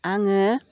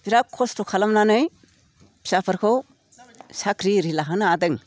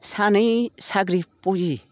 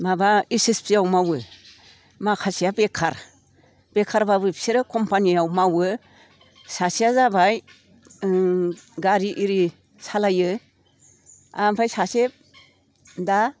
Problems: none marked